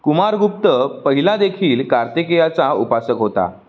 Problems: background sounds at intervals